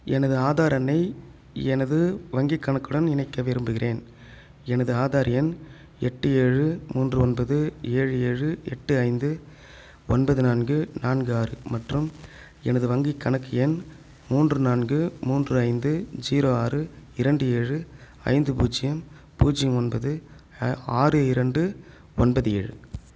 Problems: none marked